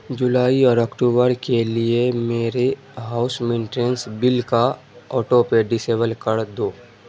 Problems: constant background noise